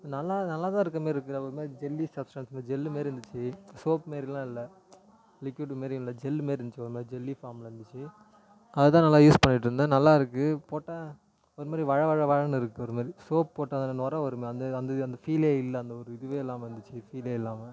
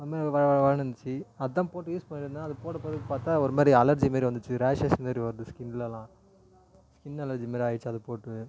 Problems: low volume